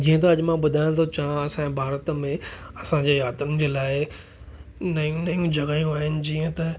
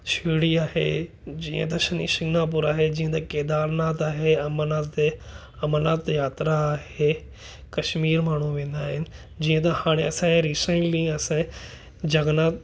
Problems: none marked